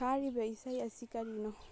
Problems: low volume